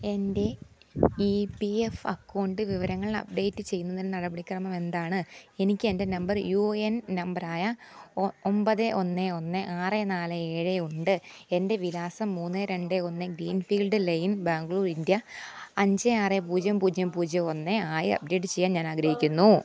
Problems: background sounds at intervals